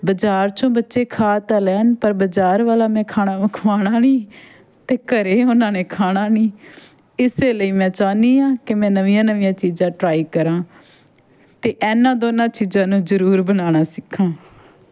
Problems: background sounds at intervals, background conversations at intervals